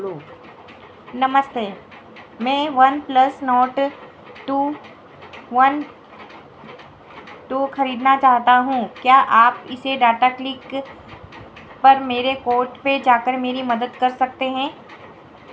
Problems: constant background noise